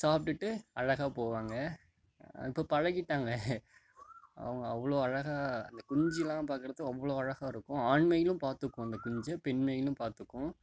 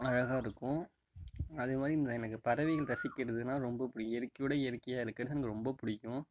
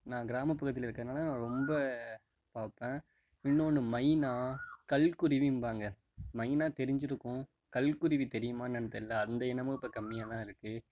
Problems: background sounds at intervals